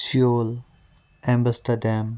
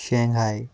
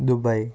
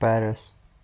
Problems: background sounds at intervals